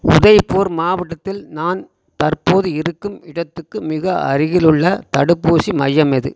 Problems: constant background noise